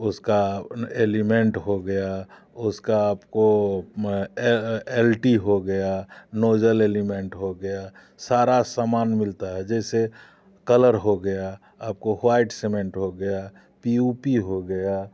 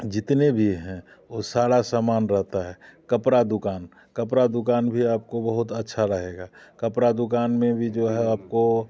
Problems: background sounds at intervals